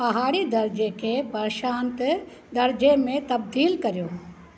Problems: constant background noise